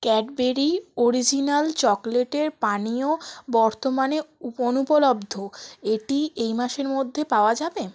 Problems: constant background noise